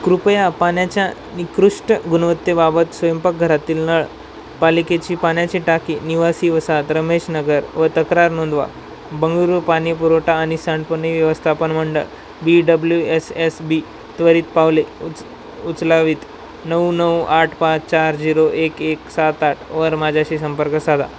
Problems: constant background noise